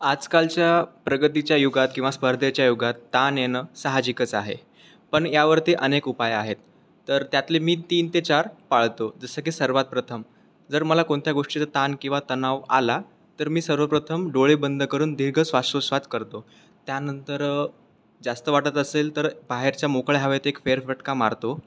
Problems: constant background noise